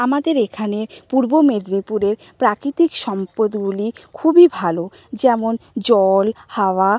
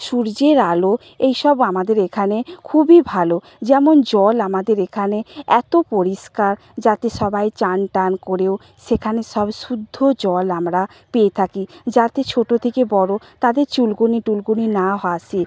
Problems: none marked